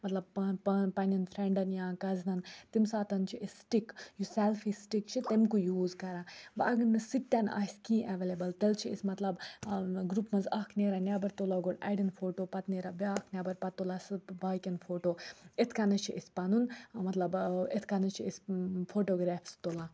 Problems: low volume